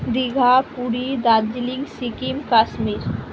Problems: constant background noise